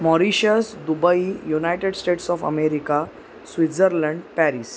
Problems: constant background noise